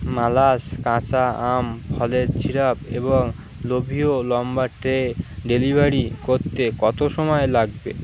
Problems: constant background noise